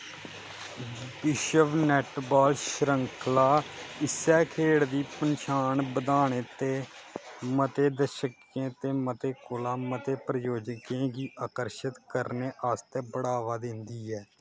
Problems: constant background noise